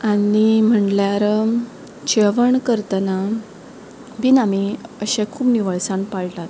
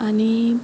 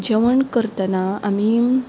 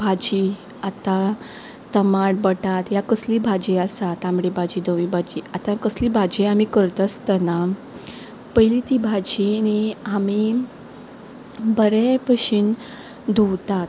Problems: none marked